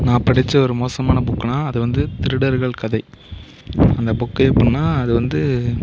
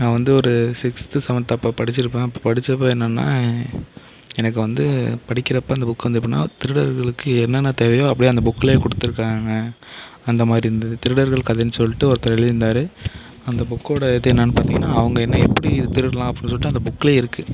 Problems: background sounds at intervals